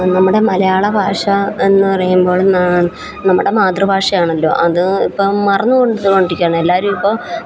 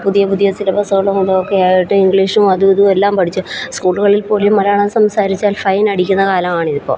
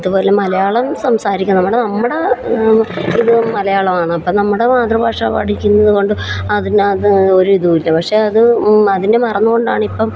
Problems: constant background noise